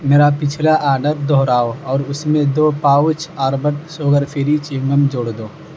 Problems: constant background noise